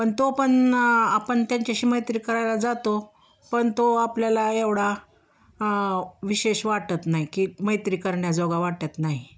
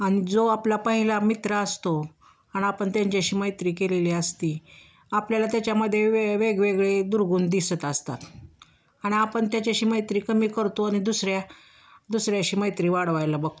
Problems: constant background noise, background conversations at intervals